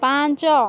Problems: continuous background conversations